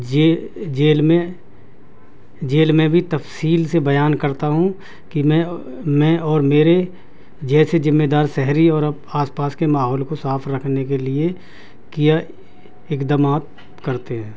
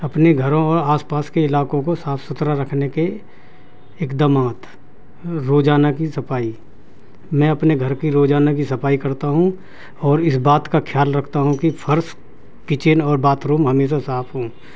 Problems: constant background noise